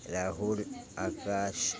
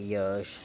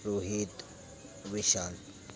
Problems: none marked